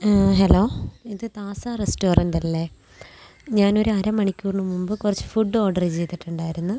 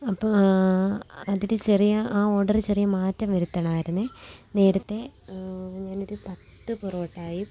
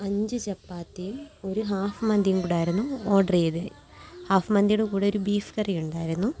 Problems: low volume